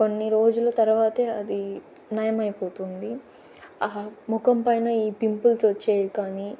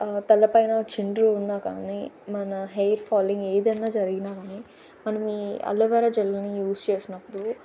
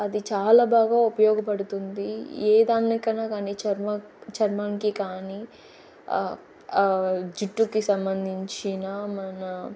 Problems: constant background noise